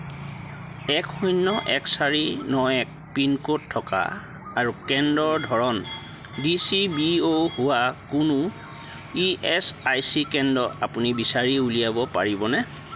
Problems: none marked